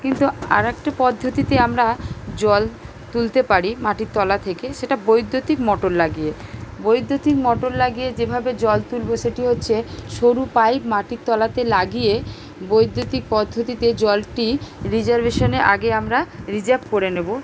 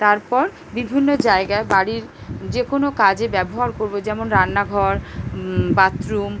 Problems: none marked